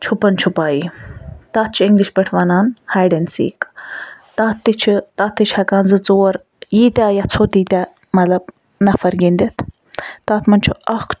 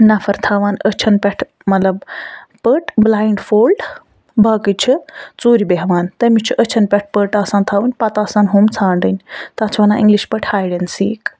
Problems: background sounds at intervals, background conversations at intervals